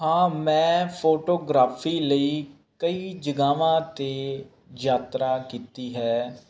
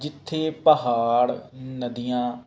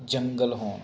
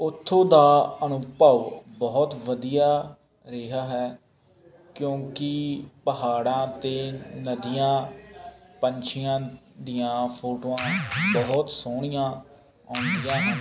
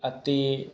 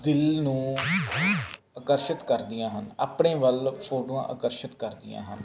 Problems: constant background noise